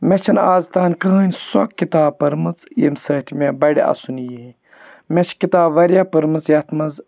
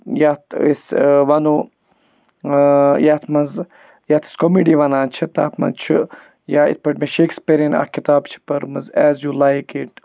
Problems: background sounds at intervals